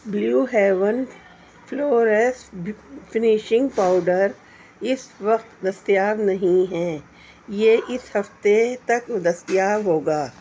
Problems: constant background noise